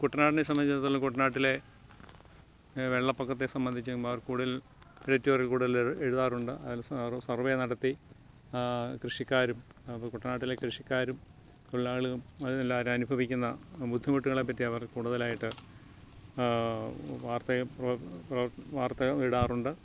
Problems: background sounds at intervals